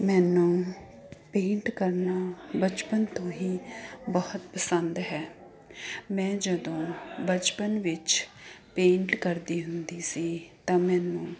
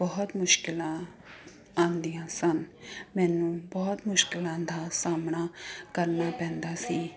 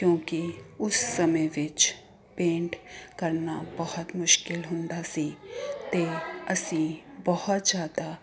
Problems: constant background noise